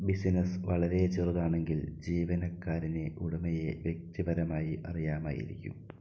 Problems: low volume